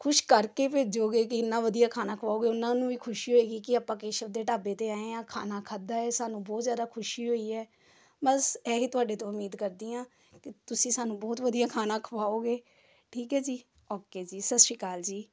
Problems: background sounds at intervals, background conversations at intervals